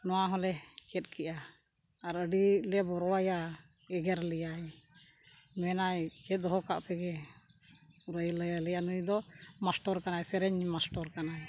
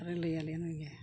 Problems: background sounds at intervals